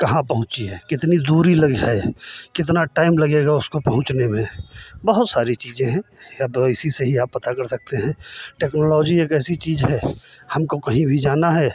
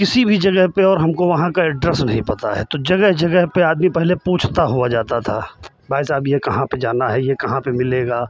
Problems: none marked